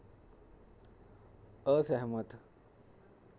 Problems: constant background noise